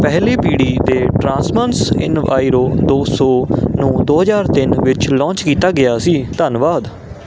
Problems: constant background noise